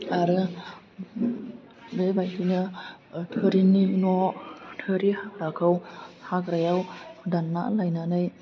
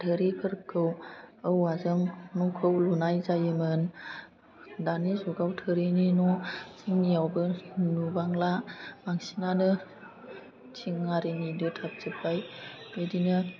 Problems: constant background noise